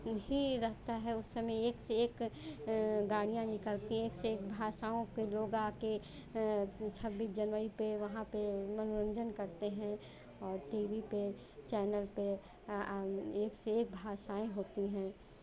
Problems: constant background noise, continuous background conversations